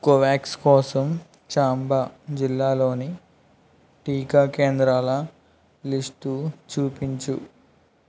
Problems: none marked